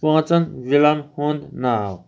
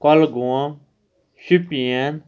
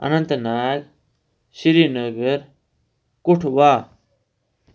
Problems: none marked